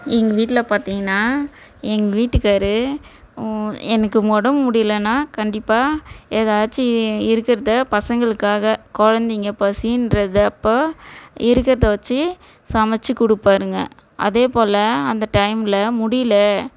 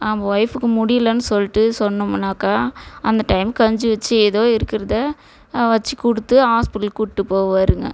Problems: background conversations at intervals